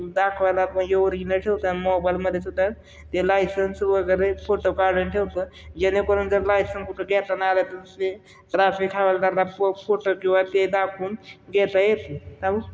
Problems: none marked